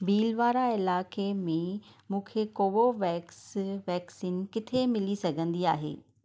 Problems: background sounds at intervals